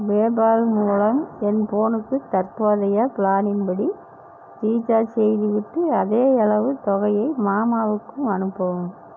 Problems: none marked